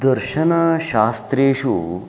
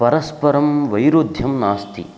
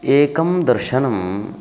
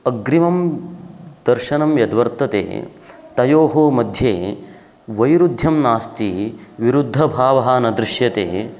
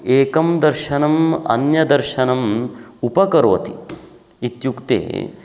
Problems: constant background noise